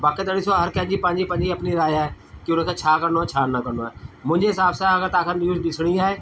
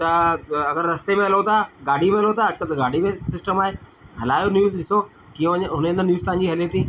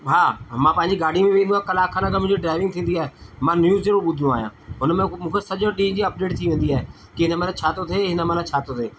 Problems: constant background noise, echo